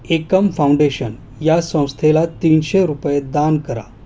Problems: constant background noise